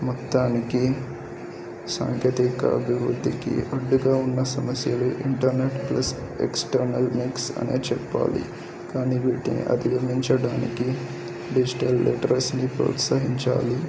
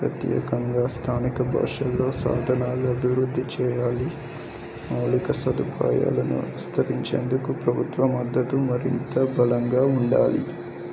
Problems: constant background noise, background conversations at intervals, low volume